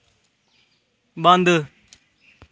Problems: none marked